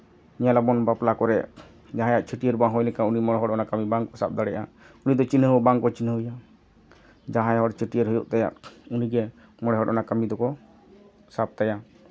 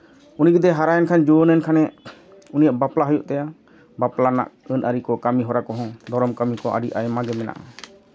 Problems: none marked